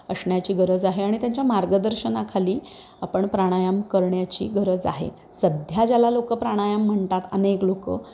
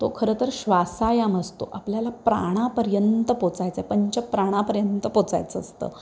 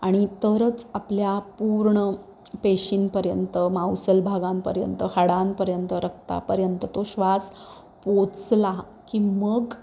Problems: background sounds at intervals